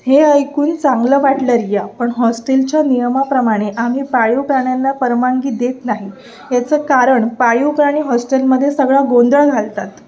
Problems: constant background noise, continuous background conversations